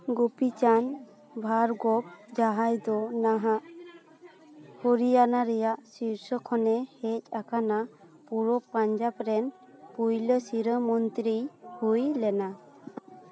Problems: continuous background conversations